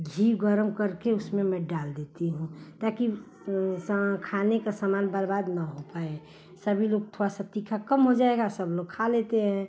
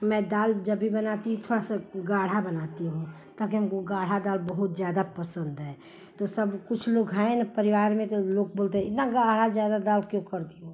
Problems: constant background noise